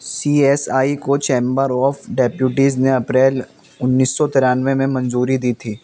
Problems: constant background noise